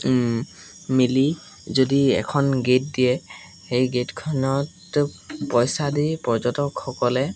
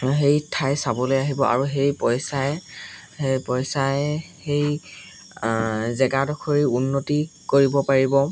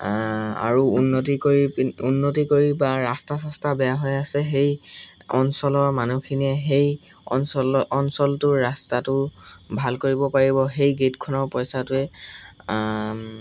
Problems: constant background noise